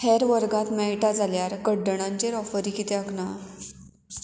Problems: none marked